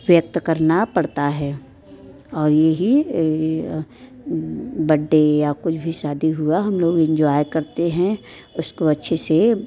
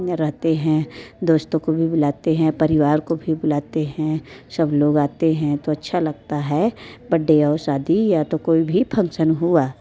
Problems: background sounds at intervals, background conversations at intervals